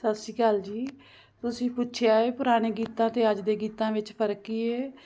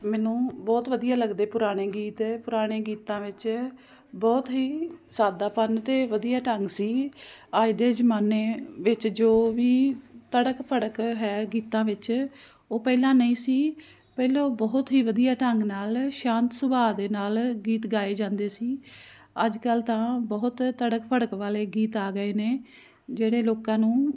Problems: constant background noise